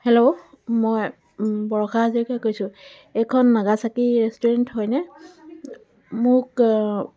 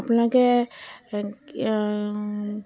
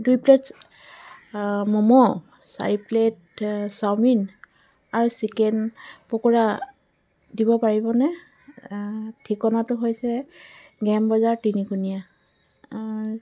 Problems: background sounds at intervals, background conversations at intervals